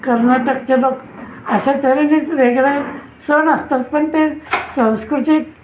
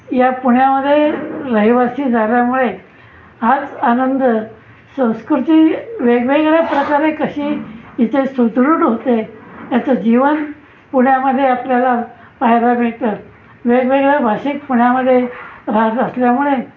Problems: constant background noise